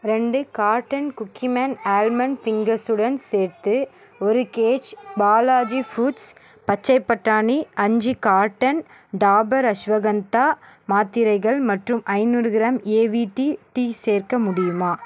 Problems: background sounds at intervals